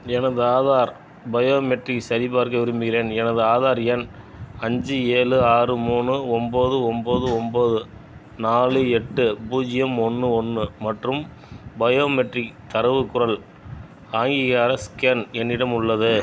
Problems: background sounds at intervals